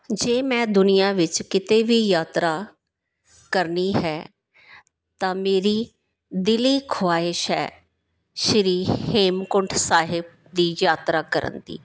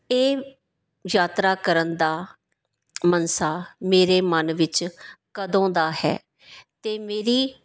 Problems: background sounds at intervals